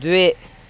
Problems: constant background noise